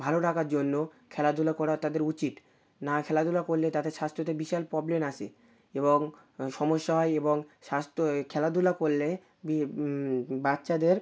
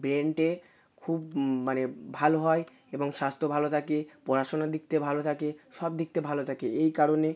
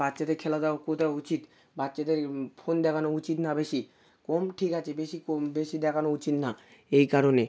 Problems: constant background noise